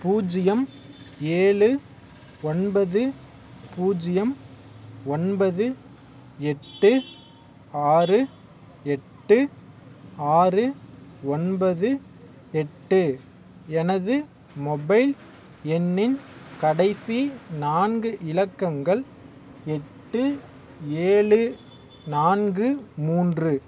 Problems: background sounds at intervals